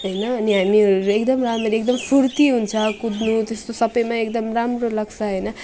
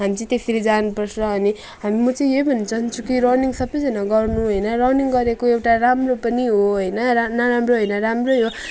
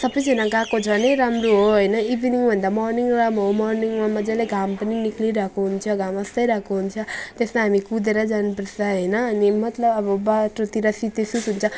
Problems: none marked